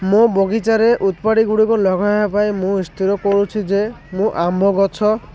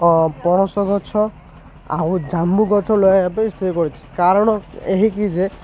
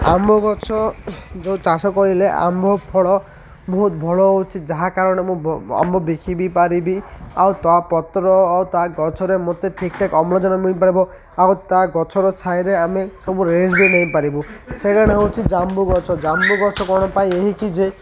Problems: constant background noise, continuous background conversations